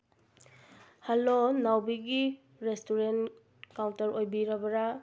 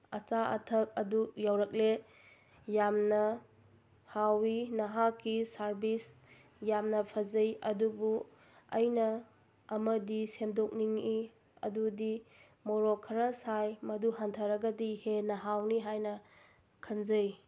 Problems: none marked